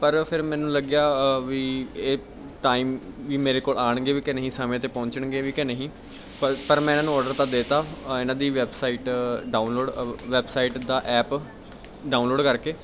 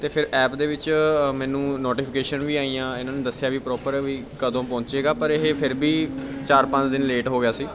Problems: background conversations at intervals